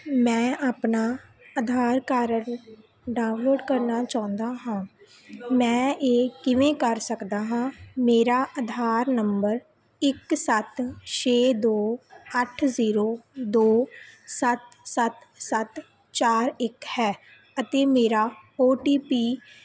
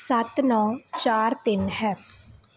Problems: none marked